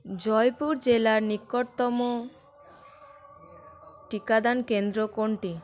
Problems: none marked